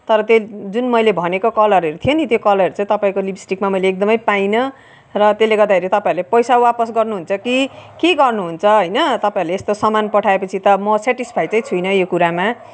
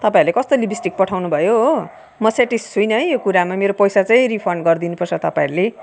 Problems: background sounds at intervals, background conversations at intervals